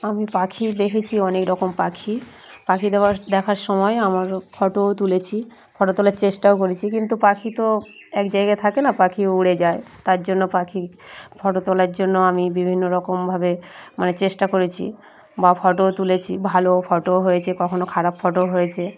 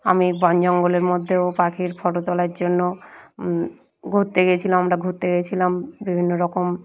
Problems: constant background noise